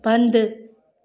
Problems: constant background noise